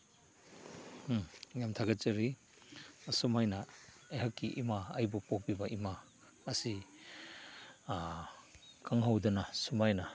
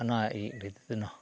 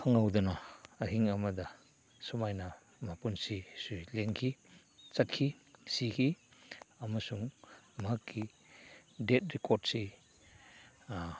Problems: background sounds at intervals